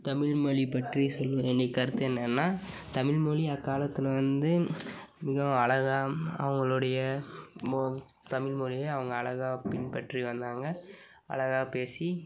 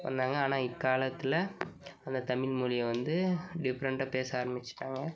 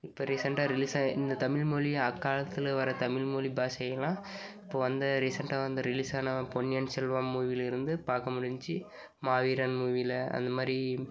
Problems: constant background noise